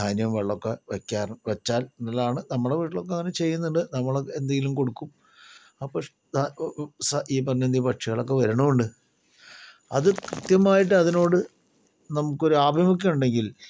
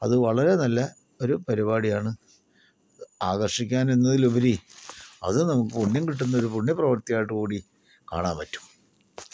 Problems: low volume